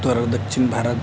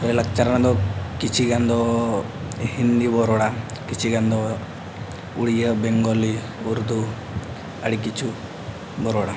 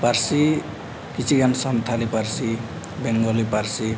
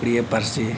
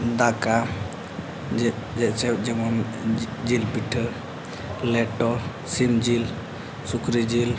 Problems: none marked